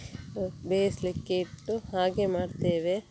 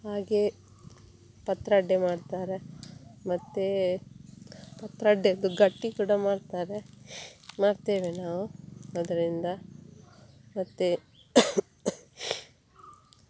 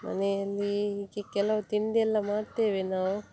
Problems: none marked